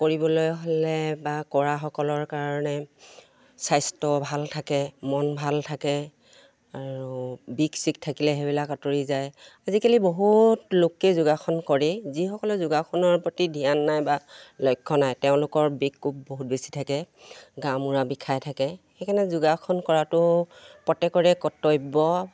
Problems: none marked